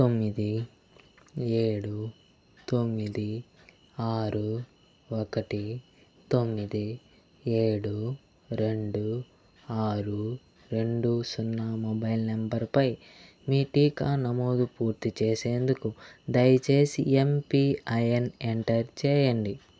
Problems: constant background noise